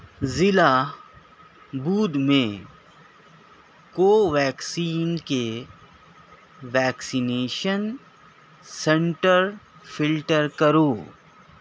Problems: none marked